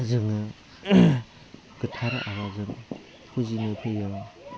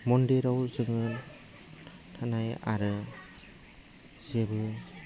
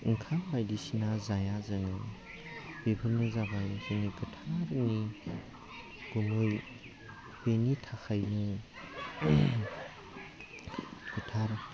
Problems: low volume